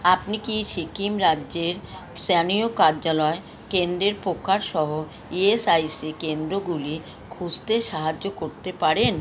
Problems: constant background noise